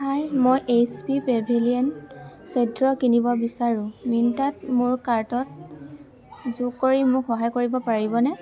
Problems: none marked